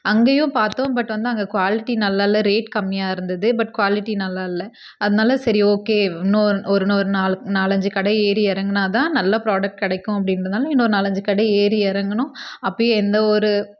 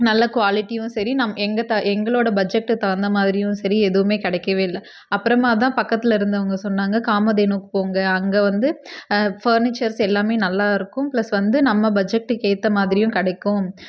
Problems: none marked